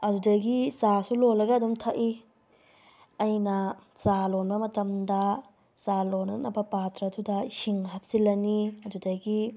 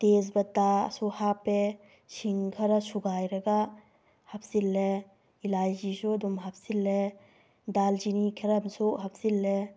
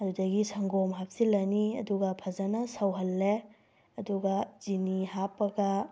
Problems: none marked